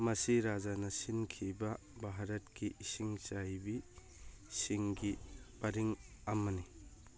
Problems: none marked